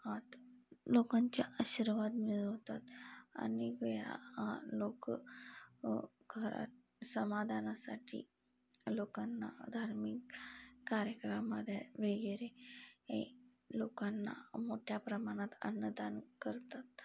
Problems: background sounds at intervals